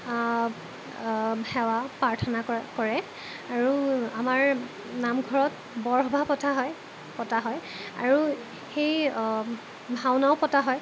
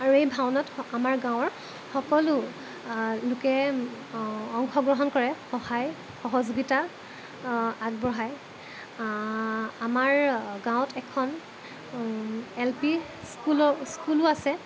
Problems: constant background noise